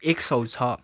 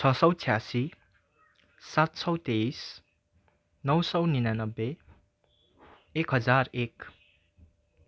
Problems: none marked